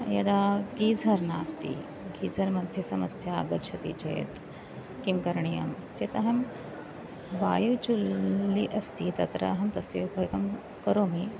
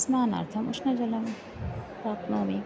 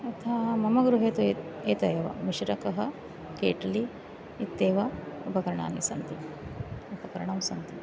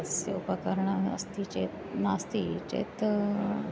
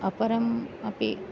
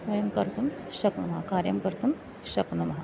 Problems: none marked